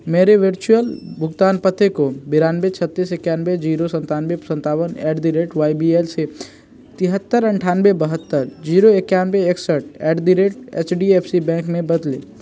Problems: none marked